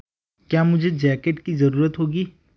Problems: none marked